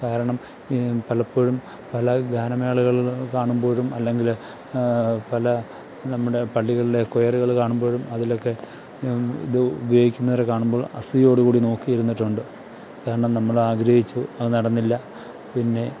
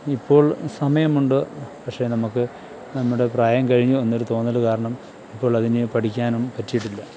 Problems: background sounds at intervals